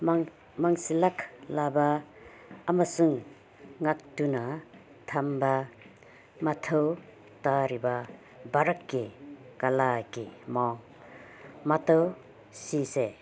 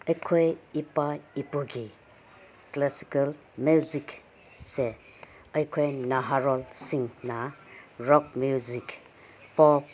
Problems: none marked